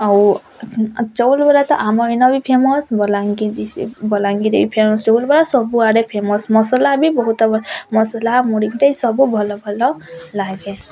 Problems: constant background noise, continuous background conversations